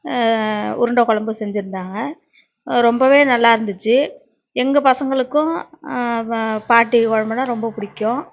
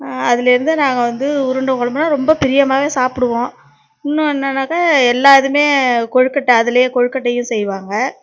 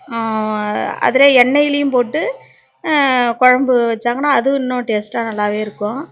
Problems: none marked